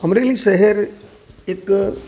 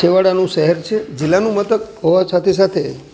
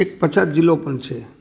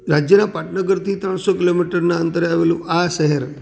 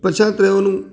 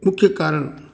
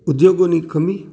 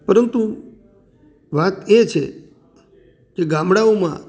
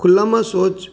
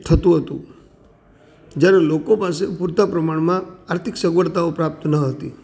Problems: background sounds at intervals